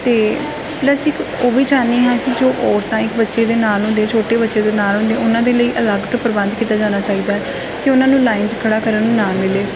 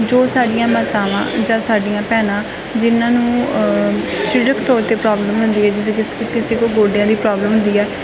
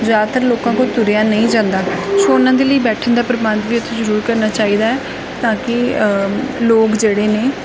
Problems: constant background noise